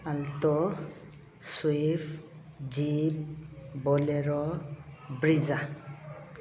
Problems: background sounds at intervals